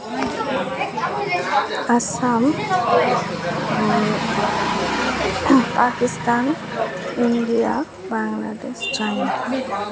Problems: constant background noise, continuous background conversations